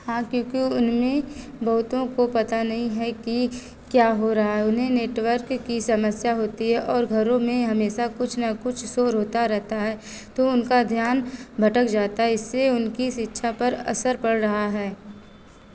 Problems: none marked